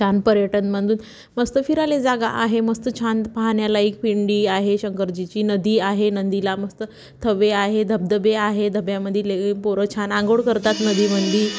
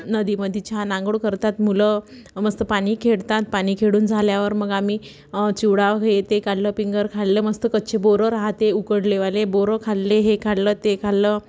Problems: background sounds at intervals, background conversations at intervals